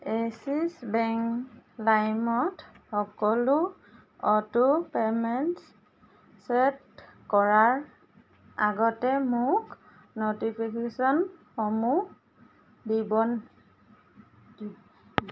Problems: constant background noise